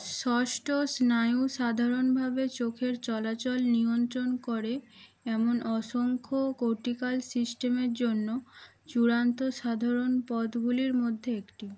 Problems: constant background noise, background conversations at intervals